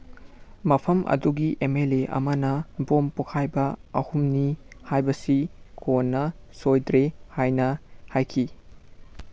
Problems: none marked